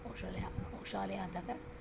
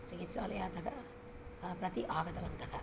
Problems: none marked